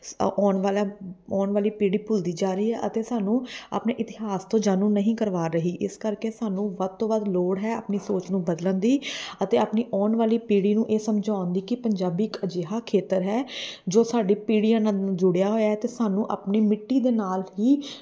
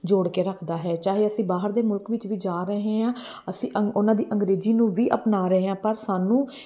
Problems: background sounds at intervals